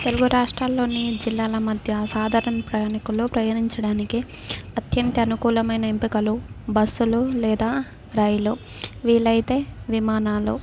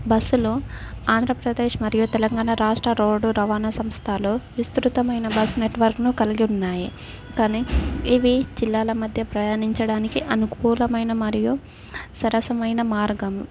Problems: none marked